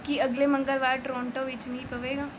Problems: background sounds at intervals